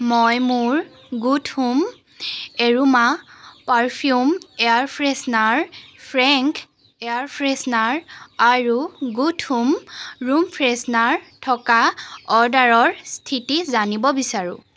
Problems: constant background noise